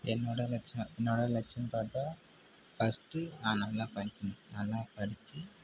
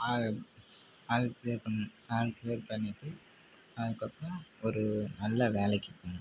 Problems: constant background noise, low volume